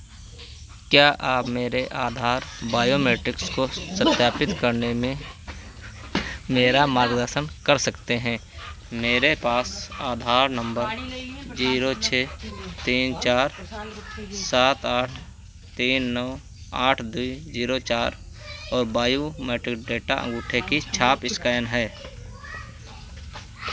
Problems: none marked